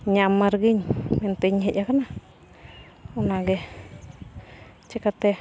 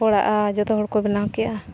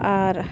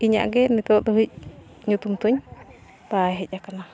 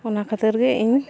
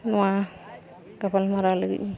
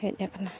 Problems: constant background noise, continuous background conversations